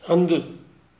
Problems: none marked